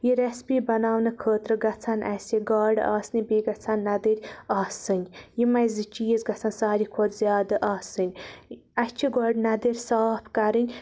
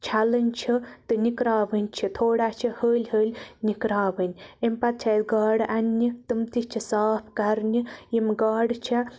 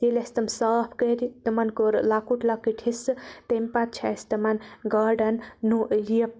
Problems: none marked